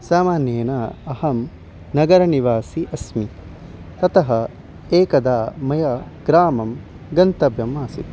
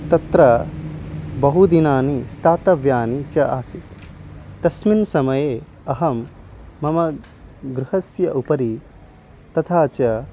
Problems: background sounds at intervals